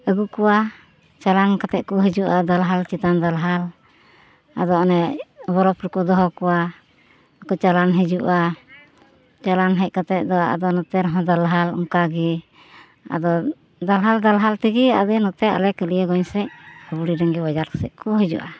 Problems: constant background noise